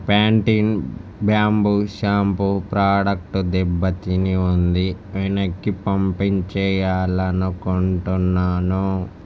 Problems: none marked